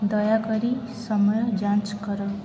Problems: constant background noise, background conversations at intervals